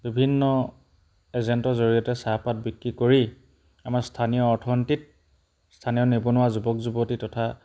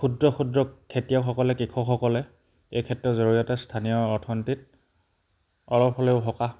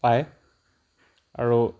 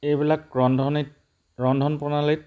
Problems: background sounds at intervals